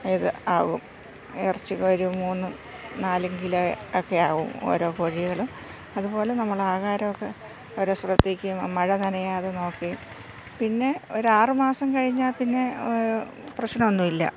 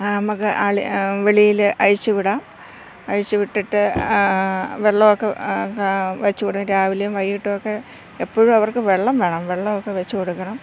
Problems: constant background noise, low volume